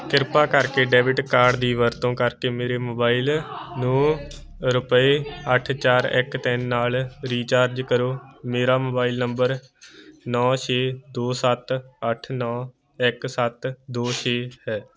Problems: continuous background conversations